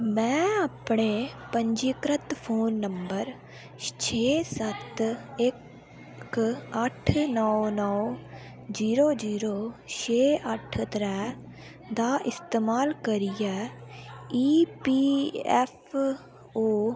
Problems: constant background noise